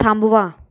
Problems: background sounds at intervals